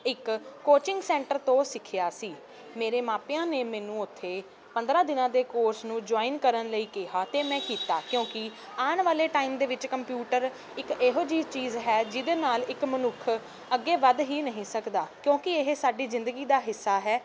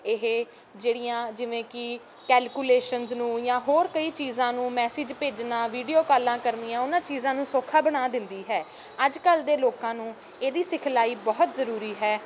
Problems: none marked